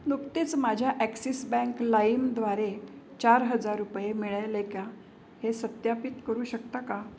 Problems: none marked